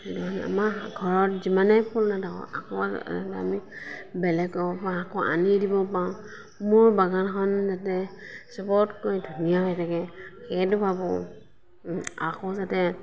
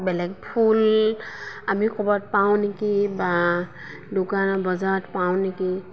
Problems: constant background noise, background conversations at intervals